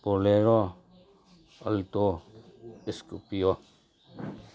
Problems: none marked